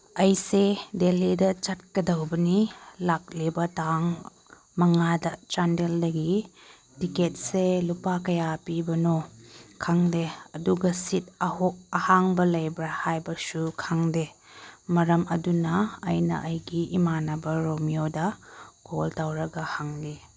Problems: none marked